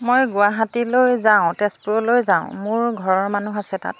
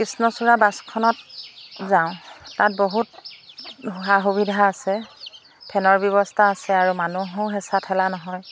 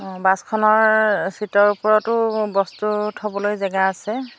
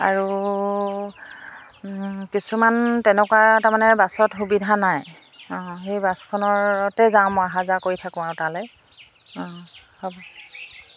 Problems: constant background noise